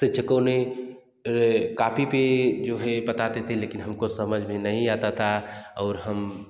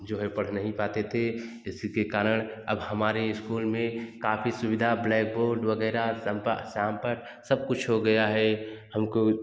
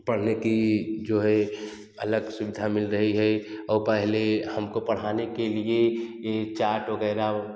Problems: background sounds at intervals